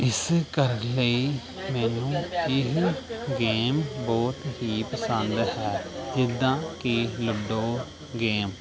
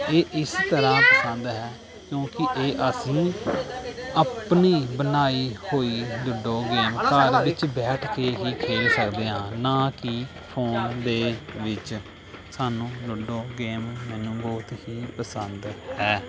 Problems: none marked